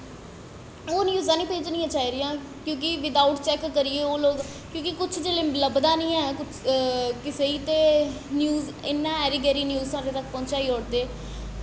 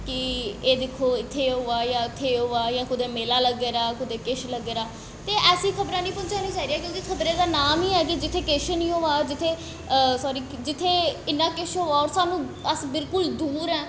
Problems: constant background noise, echo